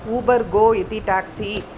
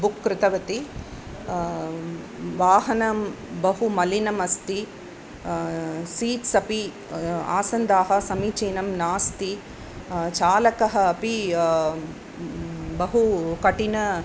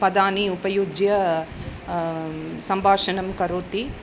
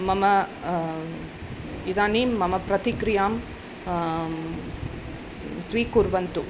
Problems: none marked